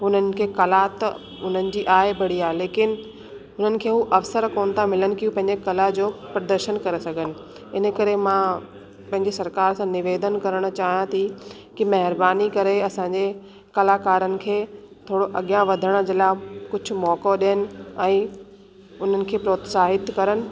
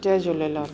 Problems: constant background noise